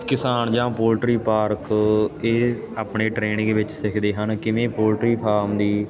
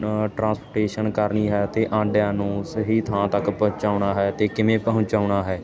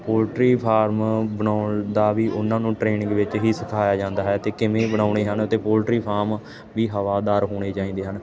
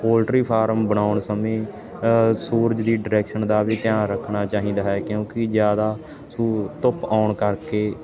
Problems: constant background noise